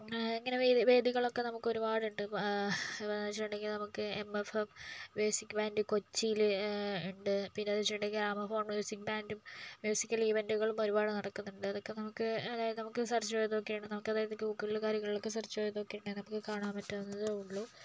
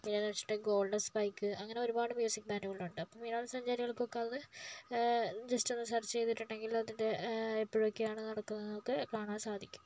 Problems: low volume